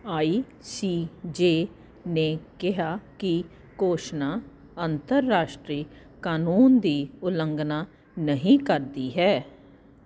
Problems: constant background noise